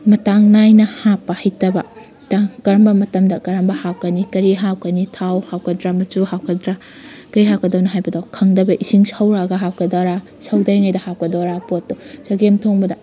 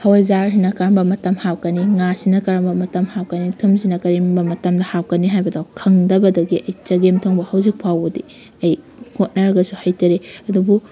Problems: background sounds at intervals